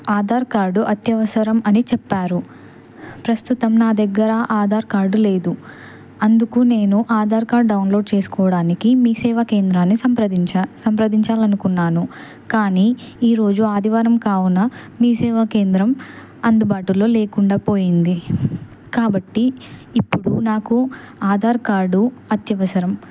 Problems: constant background noise